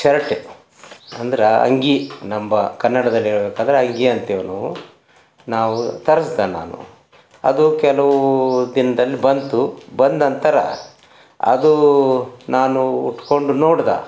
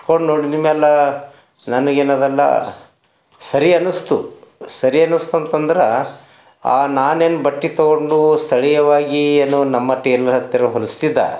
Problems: background sounds at intervals